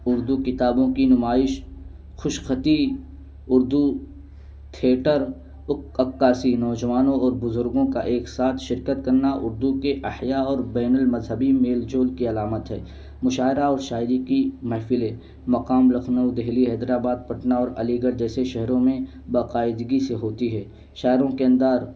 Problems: constant background noise